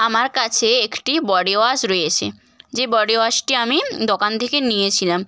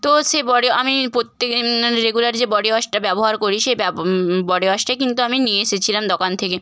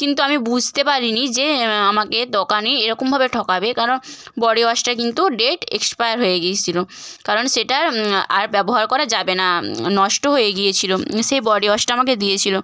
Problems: constant background noise